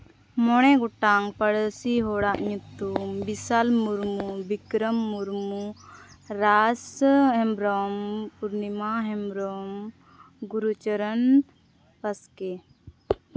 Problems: none marked